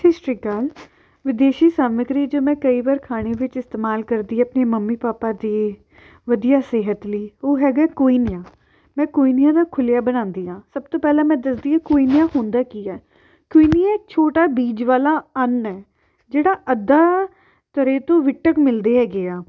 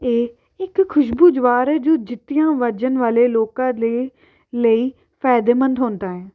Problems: background sounds at intervals